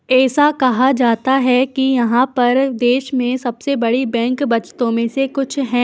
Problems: constant background noise